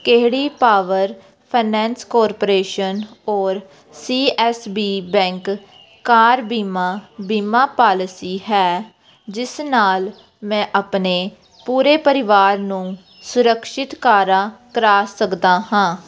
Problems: constant background noise